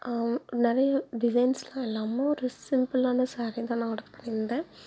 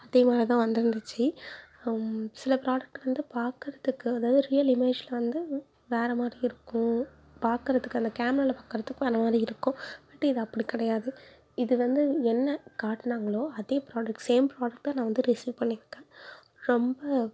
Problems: none marked